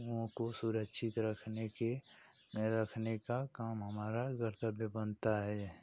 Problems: constant background noise